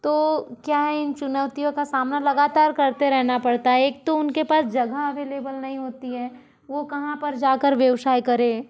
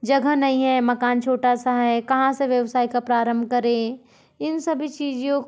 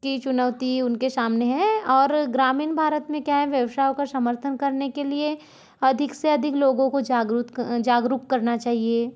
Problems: background sounds at intervals